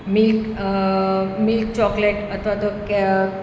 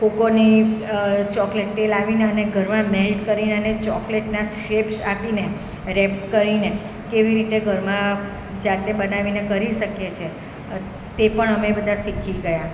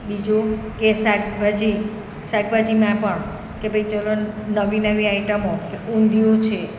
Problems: none marked